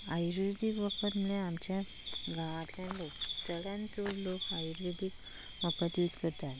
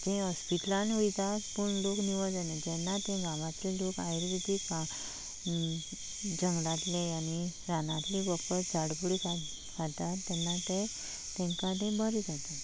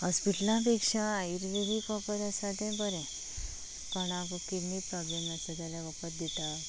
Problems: constant background noise, low volume